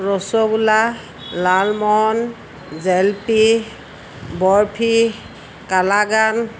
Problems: constant background noise